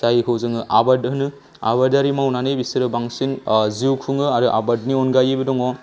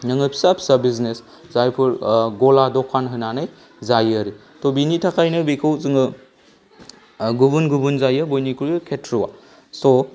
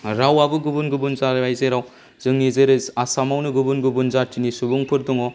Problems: low volume